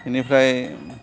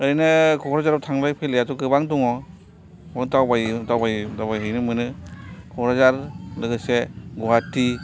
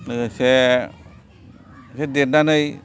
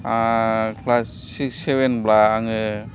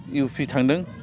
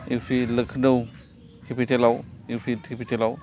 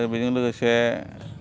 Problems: constant background noise, continuous background conversations